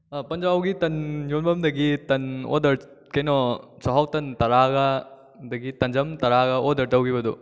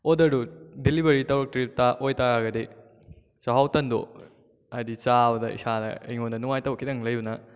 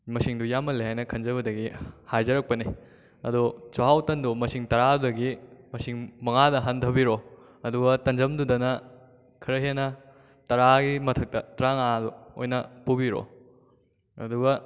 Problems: none marked